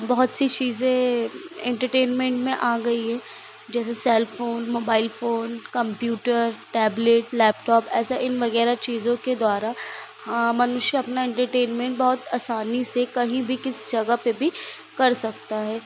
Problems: constant background noise